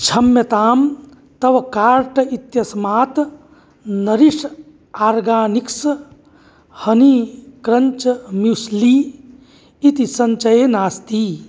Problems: none marked